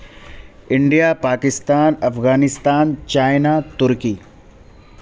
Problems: none marked